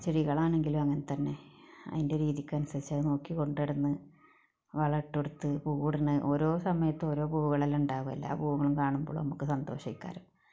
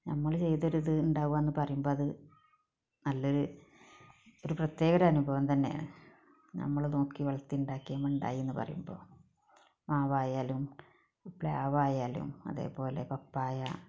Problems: background sounds at intervals